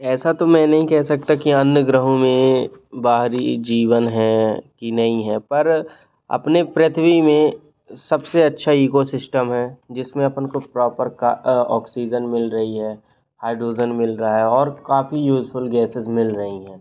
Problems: constant background noise